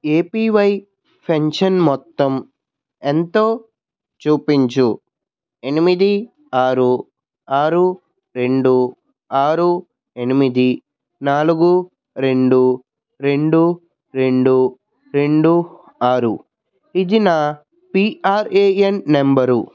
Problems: background sounds at intervals, background conversations at intervals